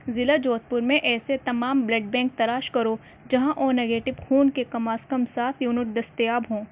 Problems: none marked